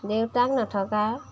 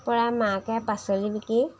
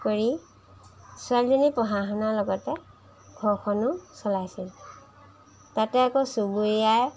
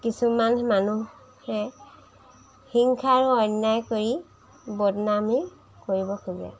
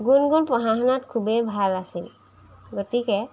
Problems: background sounds at intervals